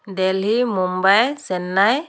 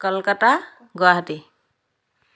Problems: none marked